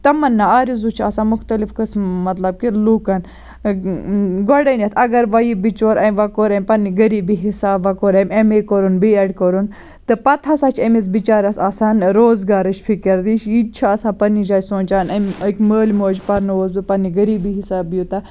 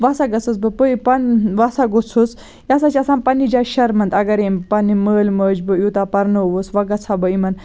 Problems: none marked